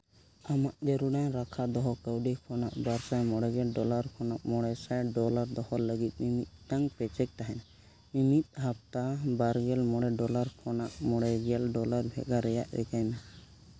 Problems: none marked